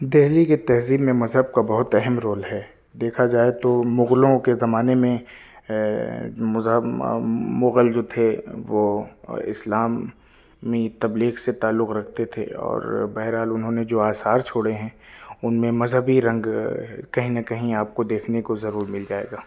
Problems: none marked